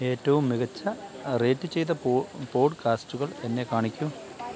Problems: constant background noise, low volume